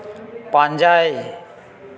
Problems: echo